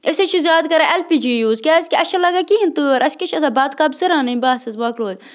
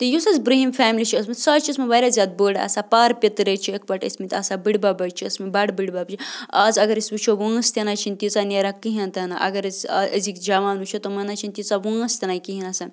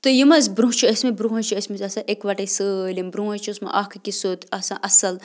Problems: constant background noise